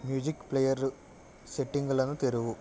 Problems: constant background noise